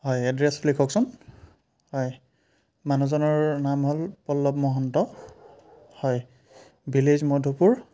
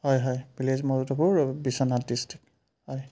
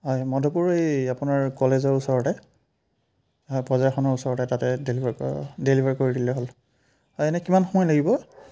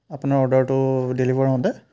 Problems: none marked